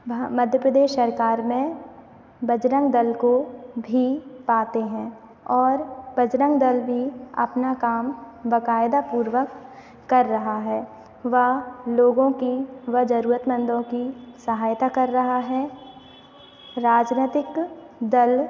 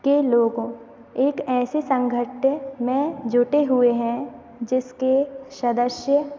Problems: none marked